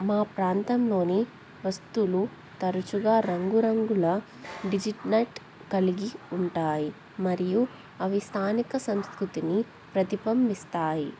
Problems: constant background noise